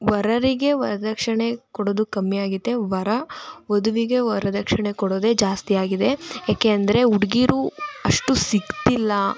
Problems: constant background noise